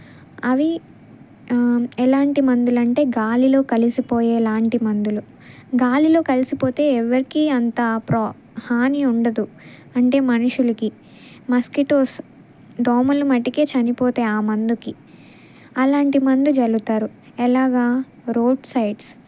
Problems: none marked